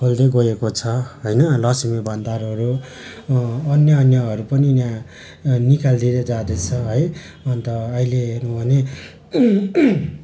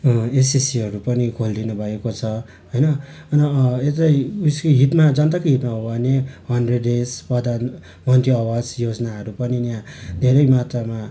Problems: none marked